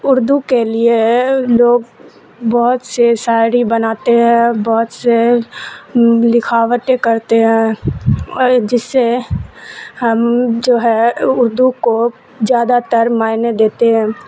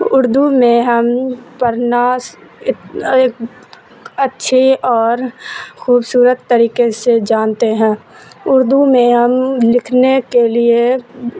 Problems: constant background noise